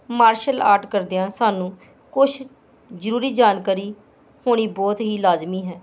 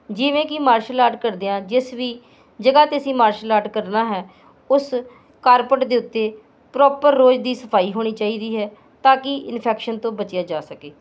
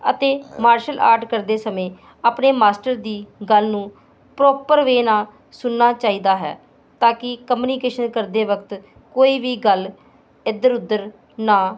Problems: constant background noise